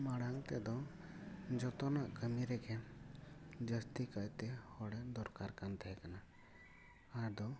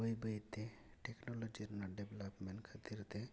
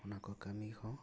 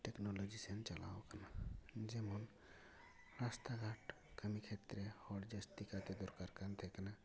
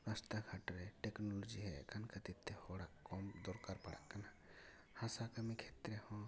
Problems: low volume